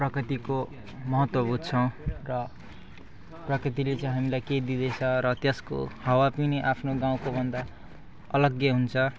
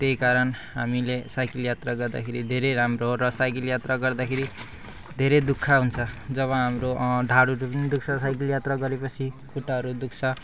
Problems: none marked